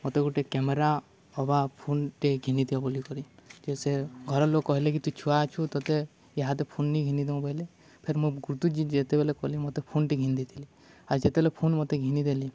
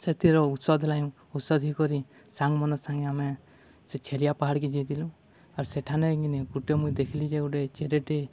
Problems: none marked